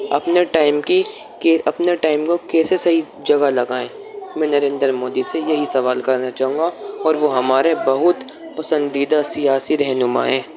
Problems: constant background noise